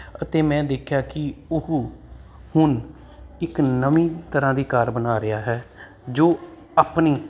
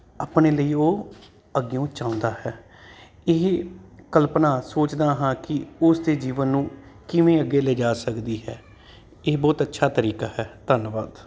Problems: constant background noise